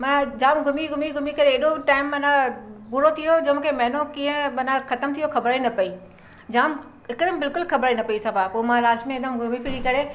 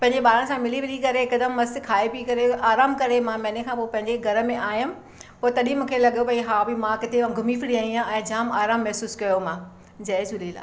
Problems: none marked